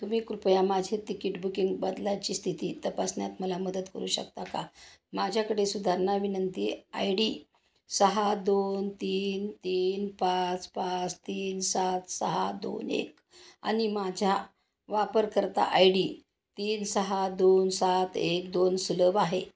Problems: none marked